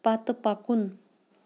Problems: background sounds at intervals